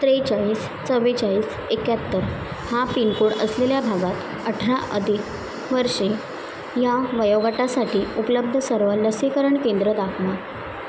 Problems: constant background noise